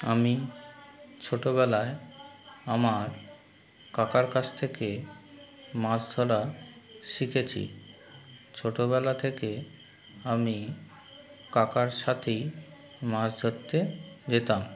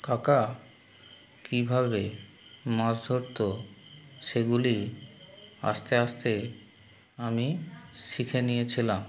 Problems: constant background noise